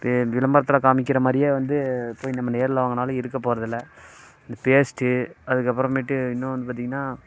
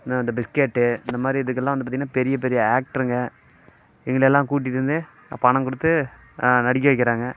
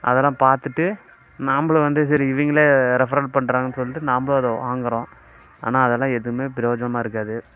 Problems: constant background noise